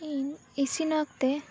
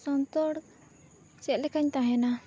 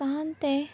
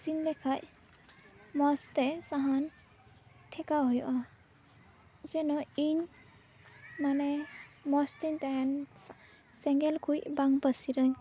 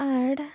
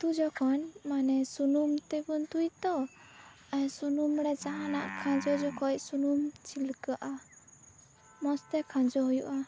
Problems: constant background noise